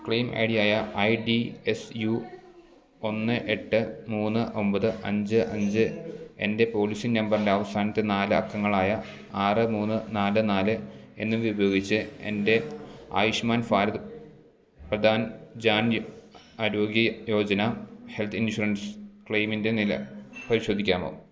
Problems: none marked